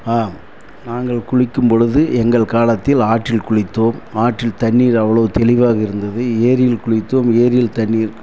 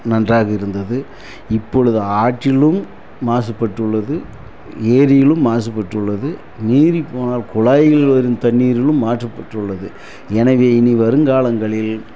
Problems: constant background noise